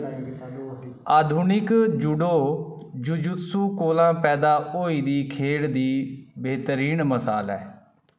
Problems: background sounds at intervals, background conversations at intervals